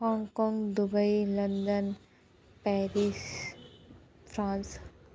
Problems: low volume